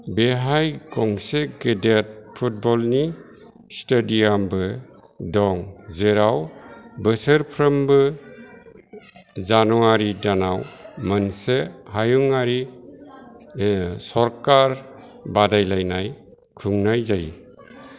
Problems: none marked